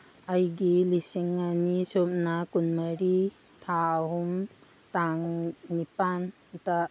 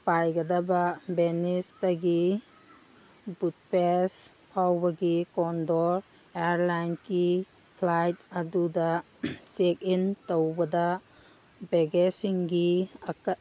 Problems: background sounds at intervals